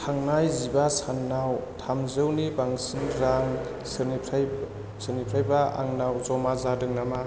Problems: low volume